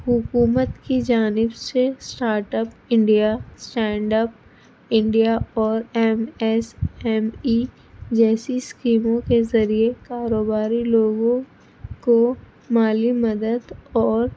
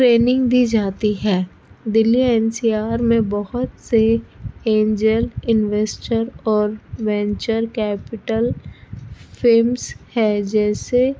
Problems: constant background noise, low volume